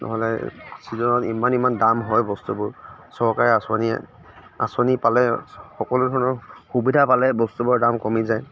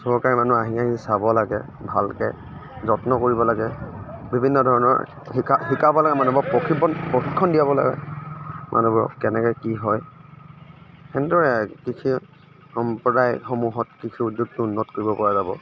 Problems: none marked